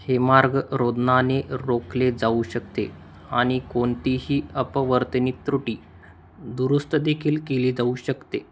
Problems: constant background noise